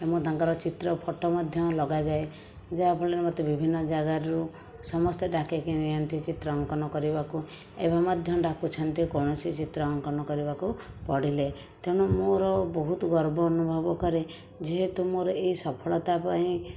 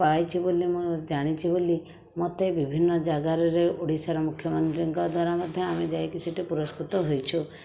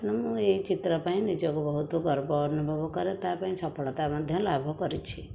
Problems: background sounds at intervals